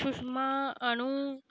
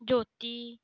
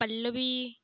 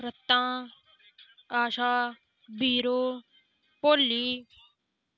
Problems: background sounds at intervals